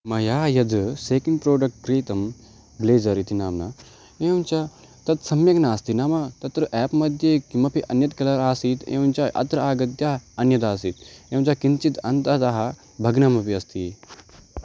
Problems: constant background noise